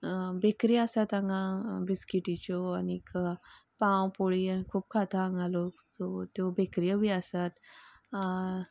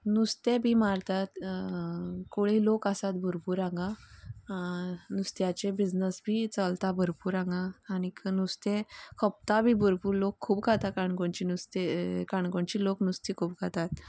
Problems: background conversations at intervals